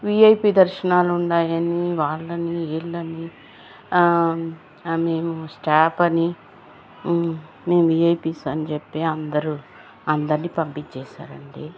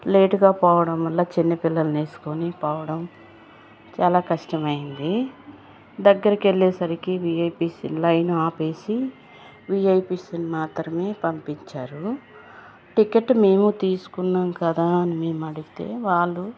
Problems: constant background noise